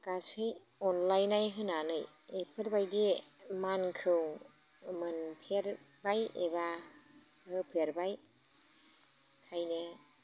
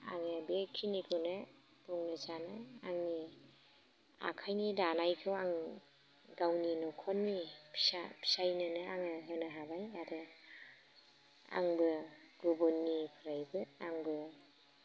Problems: low volume